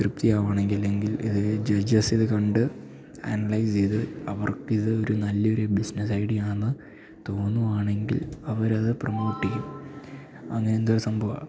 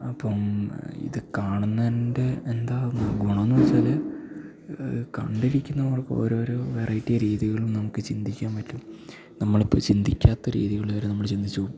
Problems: none marked